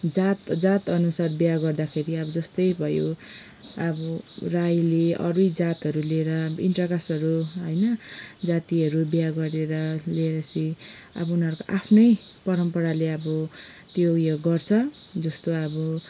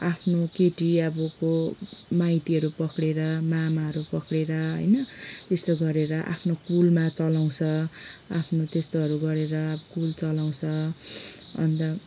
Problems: none marked